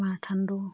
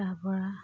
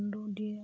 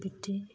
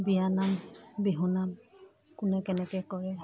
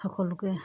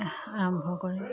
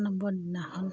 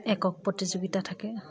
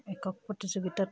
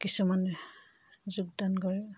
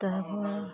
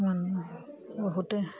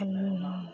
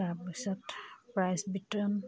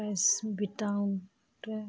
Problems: background sounds at intervals, background conversations at intervals